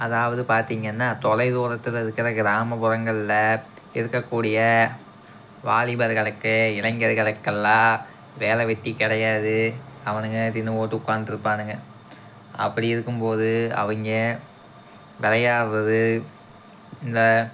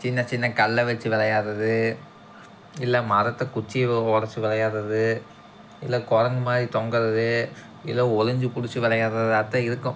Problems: background sounds at intervals